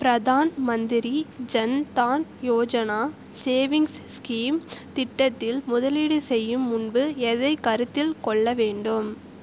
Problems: constant background noise